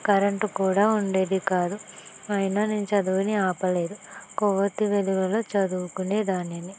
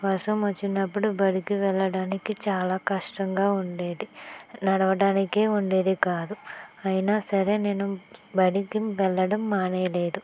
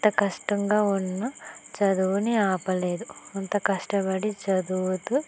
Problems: constant background noise, low volume